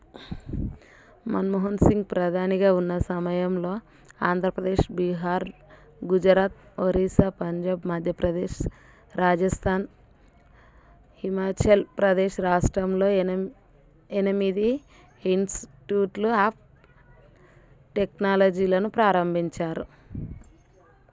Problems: none marked